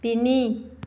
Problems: none marked